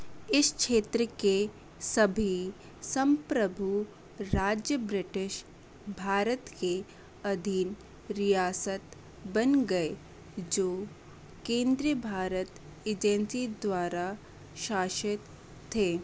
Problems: none marked